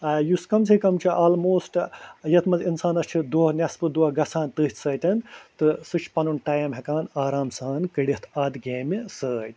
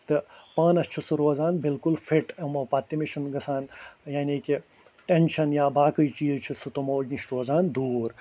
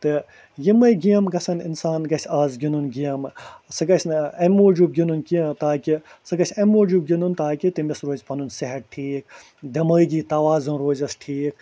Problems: constant background noise